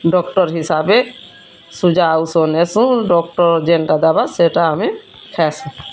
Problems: constant background noise, continuous background conversations